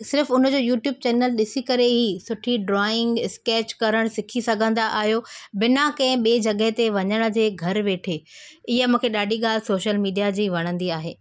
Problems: constant background noise